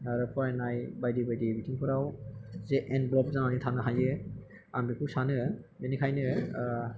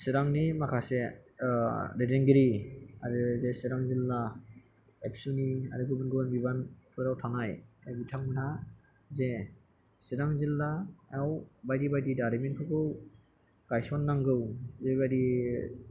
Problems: background sounds at intervals